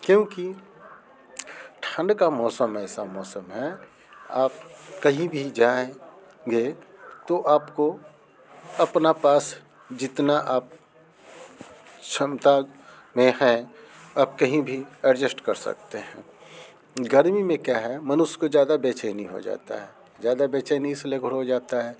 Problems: background sounds at intervals